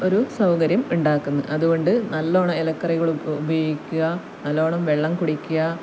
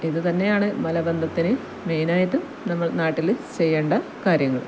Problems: none marked